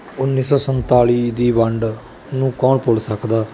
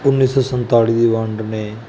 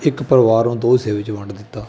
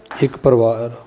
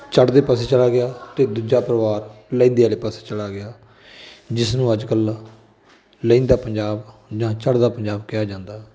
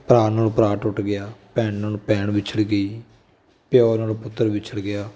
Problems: background sounds at intervals, continuous background conversations